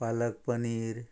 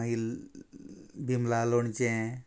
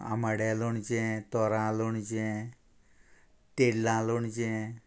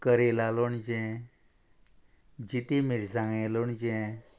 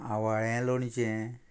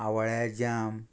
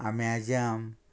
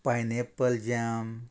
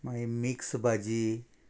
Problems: constant background noise